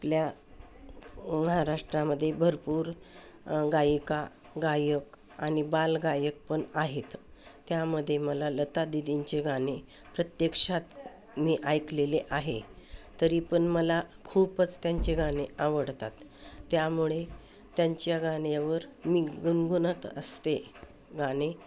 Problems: constant background noise, background conversations at intervals